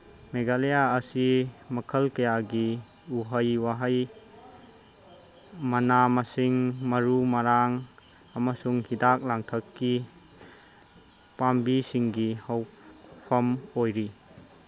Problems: none marked